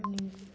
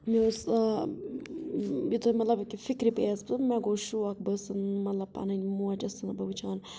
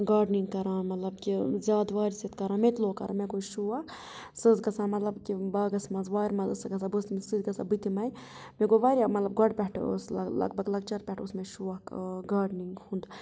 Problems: none marked